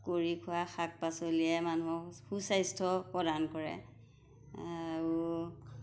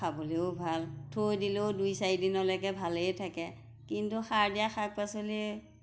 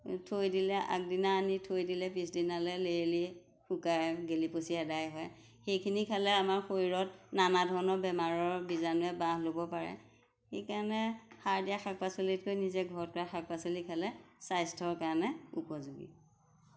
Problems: background sounds at intervals